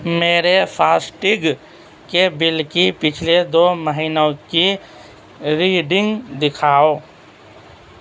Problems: constant background noise, low volume